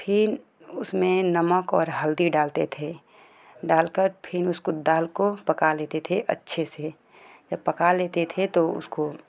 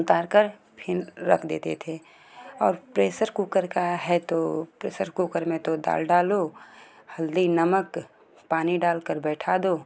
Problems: constant background noise